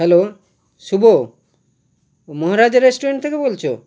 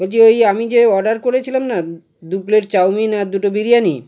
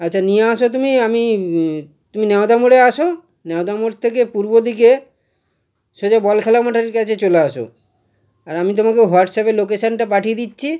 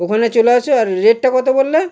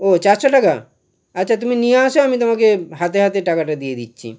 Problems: none marked